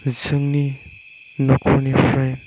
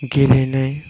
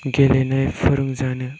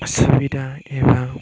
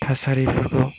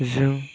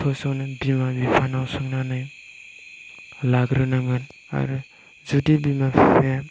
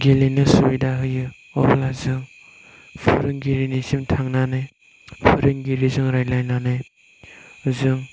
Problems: background sounds at intervals